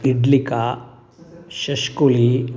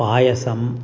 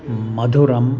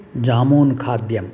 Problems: background sounds at intervals